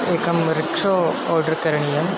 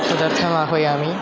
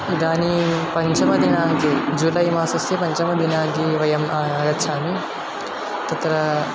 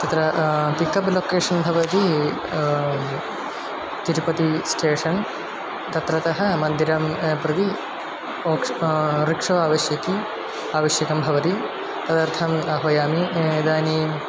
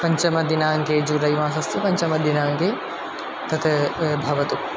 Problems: constant background noise